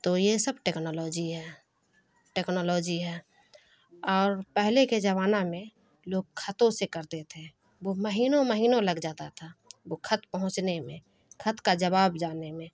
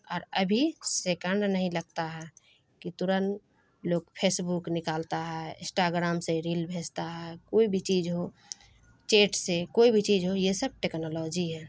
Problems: constant background noise